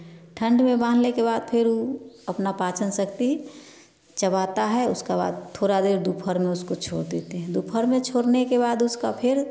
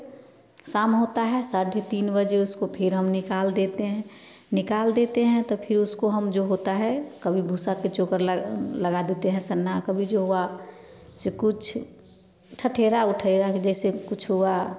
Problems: background sounds at intervals, background conversations at intervals